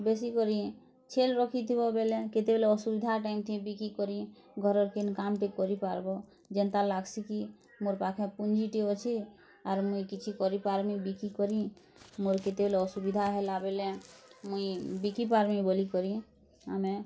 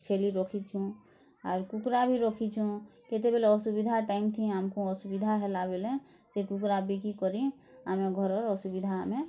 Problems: none marked